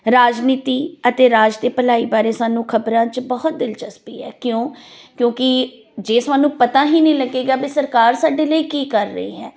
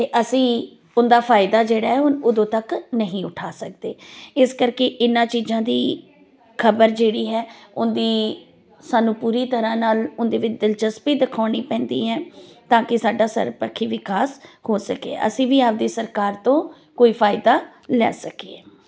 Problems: none marked